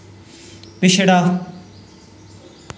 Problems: background sounds at intervals, echo